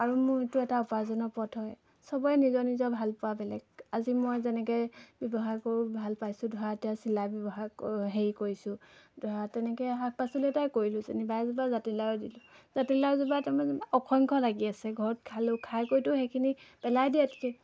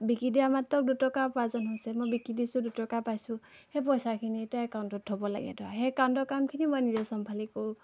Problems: constant background noise